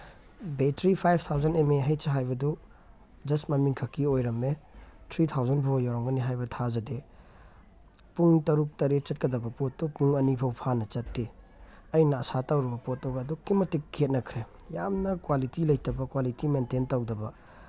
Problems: background sounds at intervals